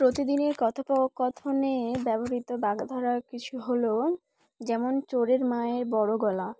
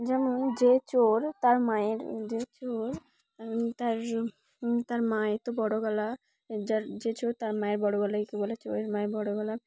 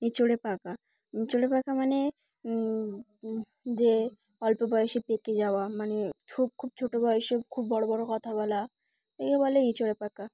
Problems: constant background noise, background conversations at intervals